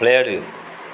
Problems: constant background noise